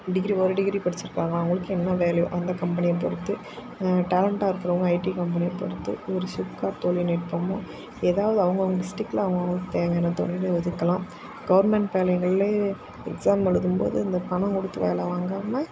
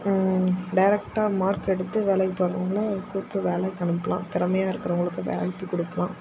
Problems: constant background noise